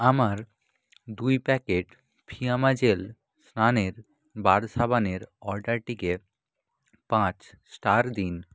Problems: none marked